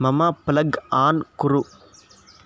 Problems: background sounds at intervals